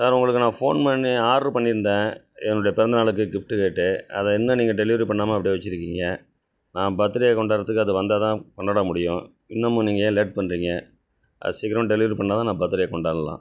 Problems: none marked